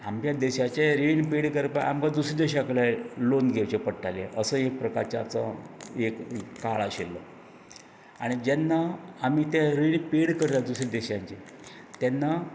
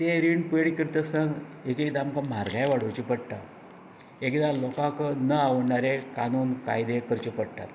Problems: none marked